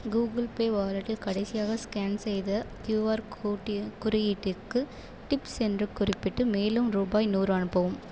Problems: constant background noise